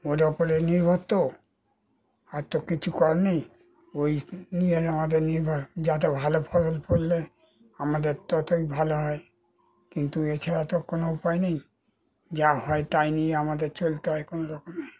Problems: constant background noise